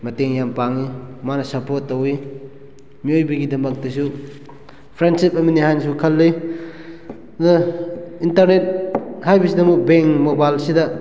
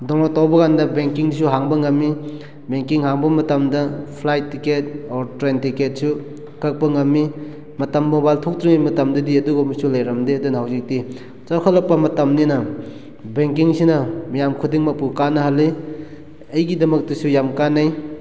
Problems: background sounds at intervals